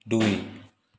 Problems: background sounds at intervals